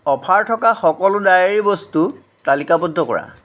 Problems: background sounds at intervals